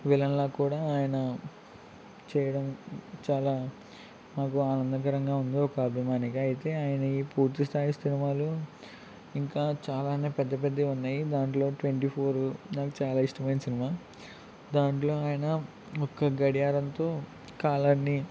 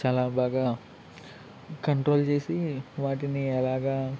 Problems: none marked